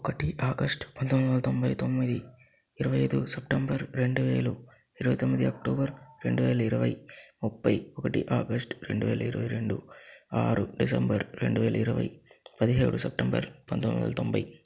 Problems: constant background noise, low volume